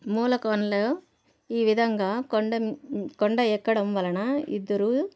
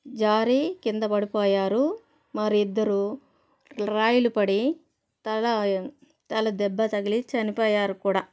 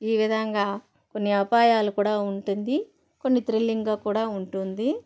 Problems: constant background noise